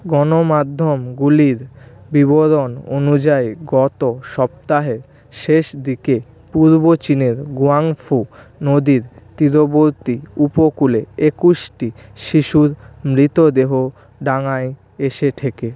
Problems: none marked